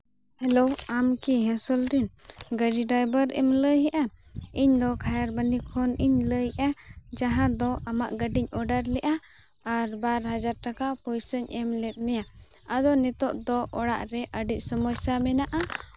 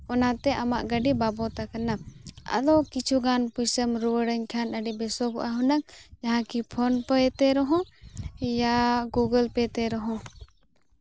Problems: background sounds at intervals